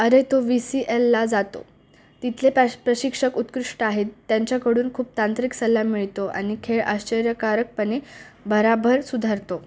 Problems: none marked